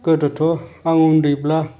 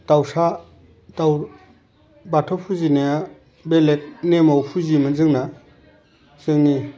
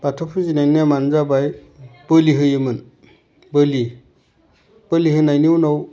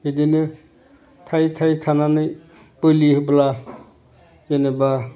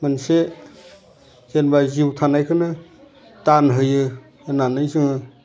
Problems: none marked